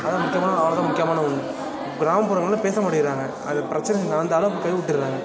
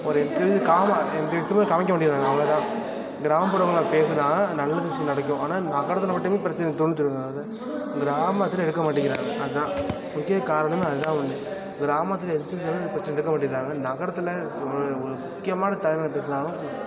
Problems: constant background noise, continuous background conversations